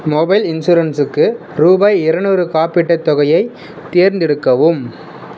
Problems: constant background noise